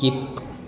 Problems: background sounds at intervals